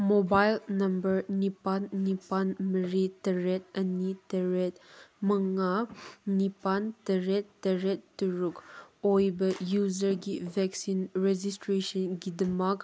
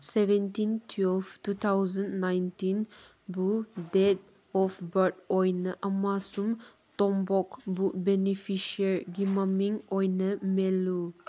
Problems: none marked